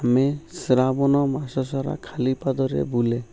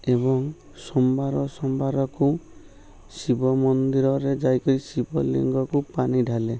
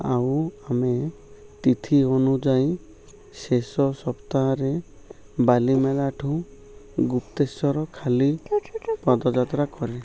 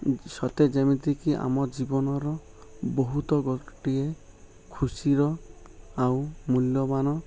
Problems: none marked